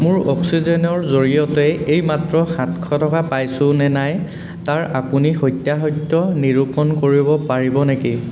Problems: constant background noise